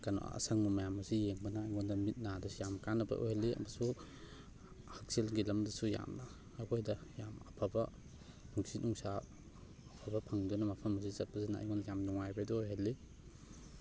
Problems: none marked